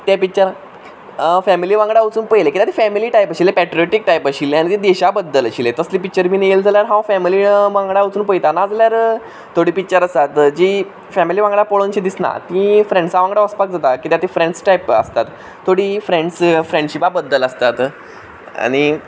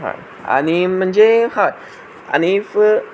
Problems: background sounds at intervals